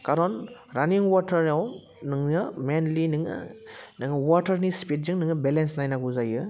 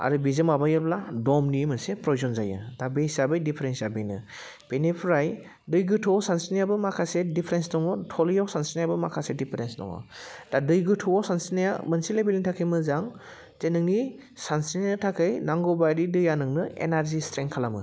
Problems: none marked